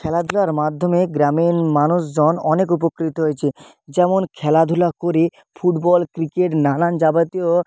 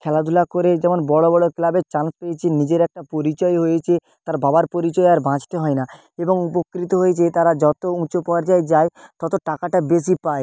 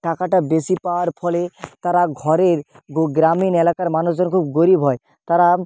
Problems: constant background noise